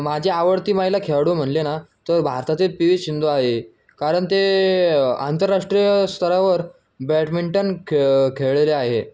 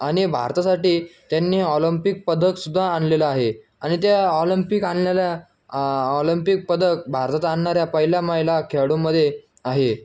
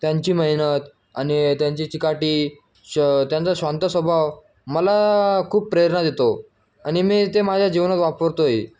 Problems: none marked